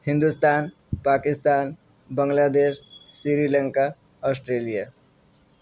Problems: none marked